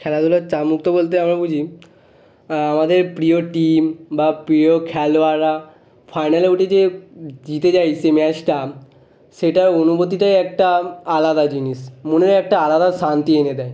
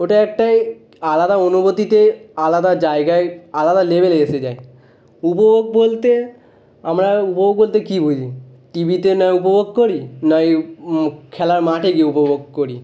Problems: none marked